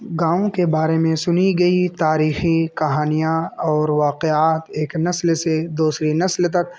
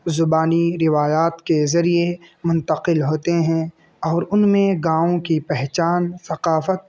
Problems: constant background noise